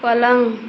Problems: constant background noise